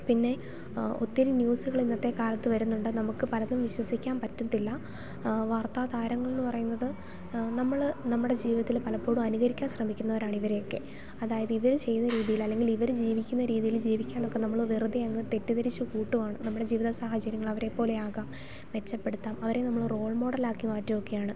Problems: none marked